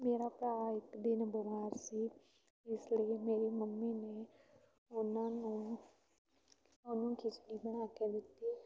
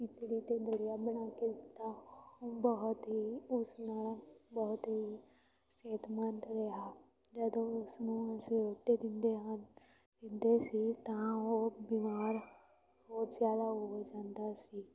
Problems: continuous background conversations